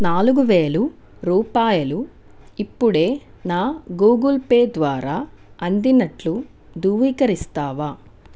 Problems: constant background noise